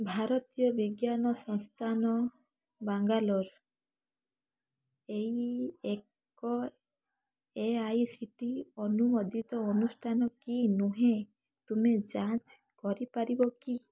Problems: background sounds at intervals